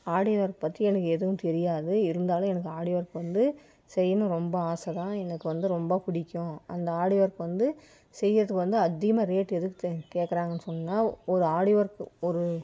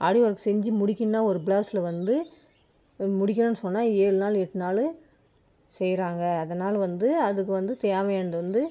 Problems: none marked